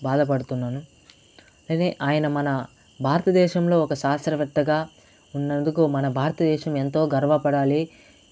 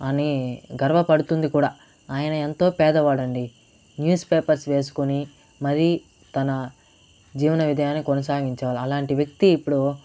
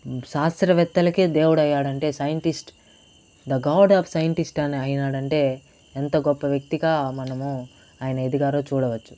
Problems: constant background noise